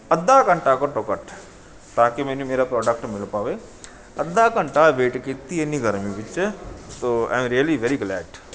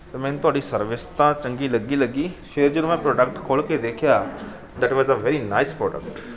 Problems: none marked